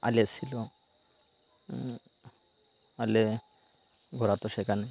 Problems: constant background noise